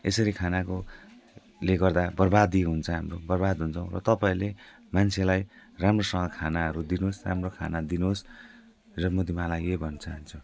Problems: constant background noise